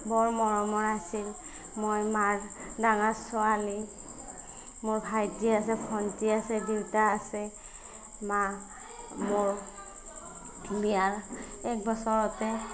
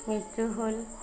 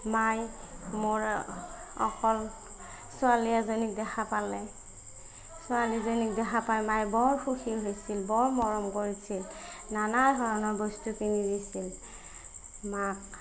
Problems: none marked